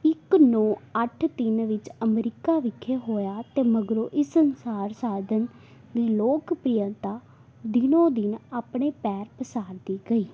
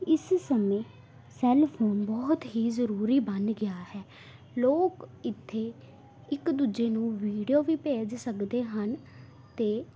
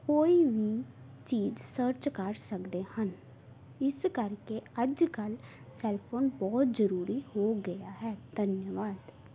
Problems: background conversations at intervals